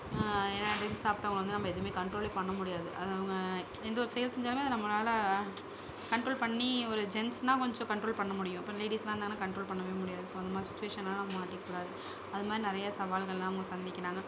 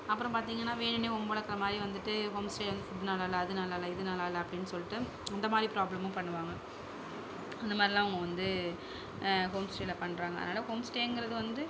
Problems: background sounds at intervals, low volume